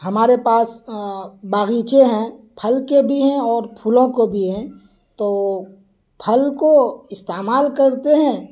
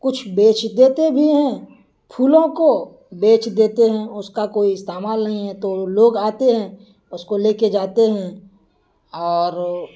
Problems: constant background noise